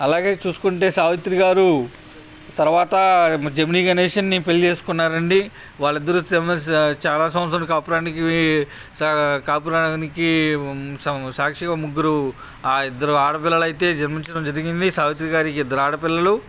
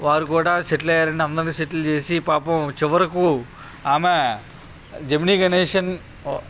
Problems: none marked